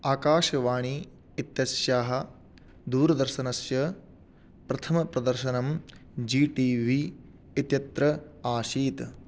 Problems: none marked